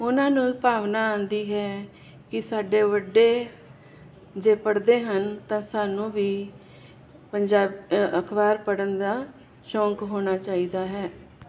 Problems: none marked